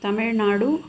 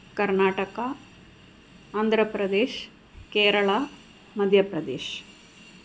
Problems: constant background noise